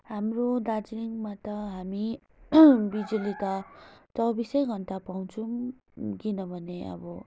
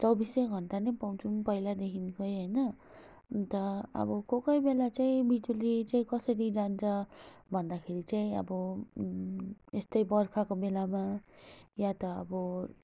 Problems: none marked